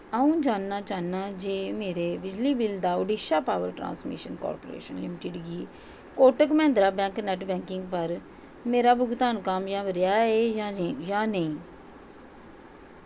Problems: constant background noise, echo